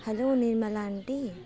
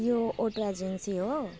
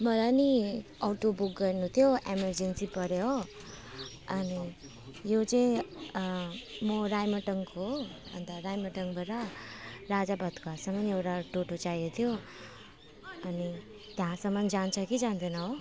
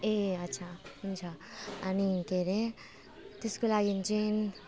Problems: constant background noise, continuous background conversations